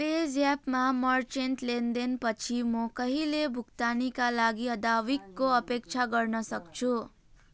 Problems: background sounds at intervals